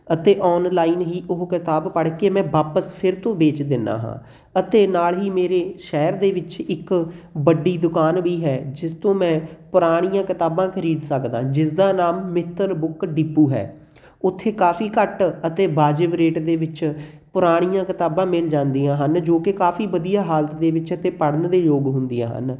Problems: none marked